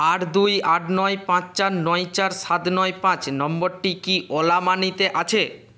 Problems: constant background noise